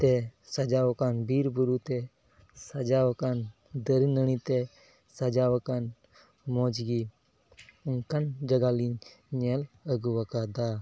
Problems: background sounds at intervals